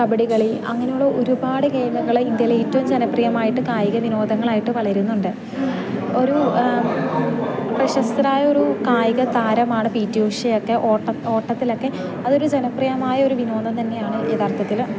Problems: constant background noise, low volume